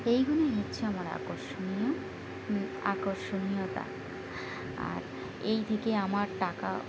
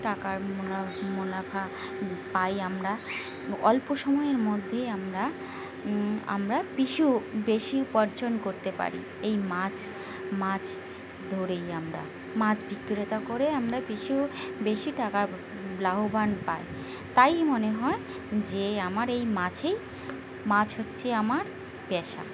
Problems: constant background noise, continuous background conversations